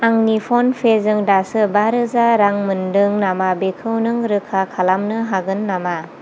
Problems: constant background noise